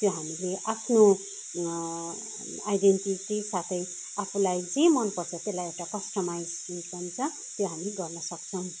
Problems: background sounds at intervals, background conversations at intervals